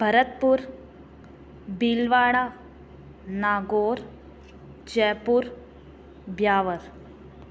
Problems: constant background noise, echo